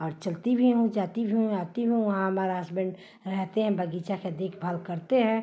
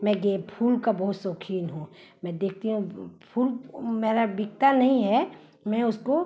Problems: constant background noise